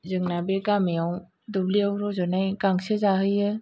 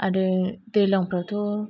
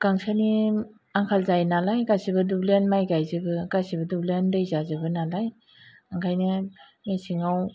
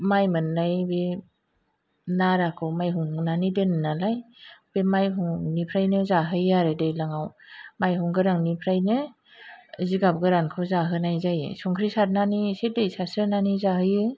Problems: low volume